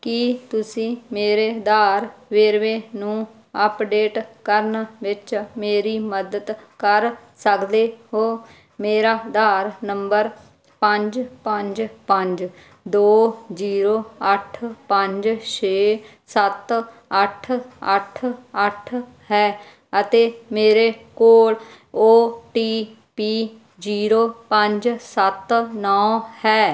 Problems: background sounds at intervals